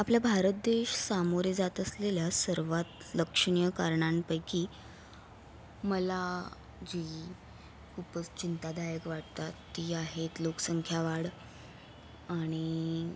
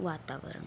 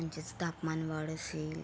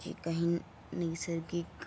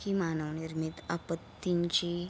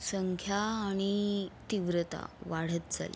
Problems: constant background noise